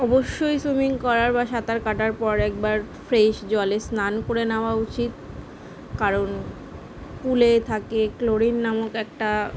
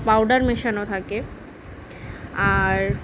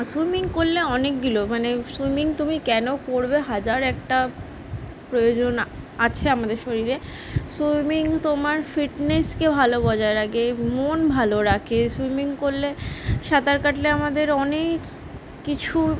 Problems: background sounds at intervals